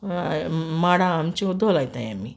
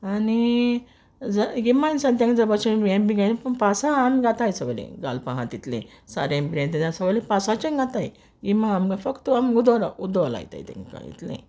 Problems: background sounds at intervals